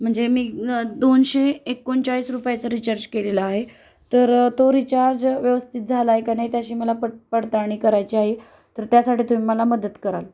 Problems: none marked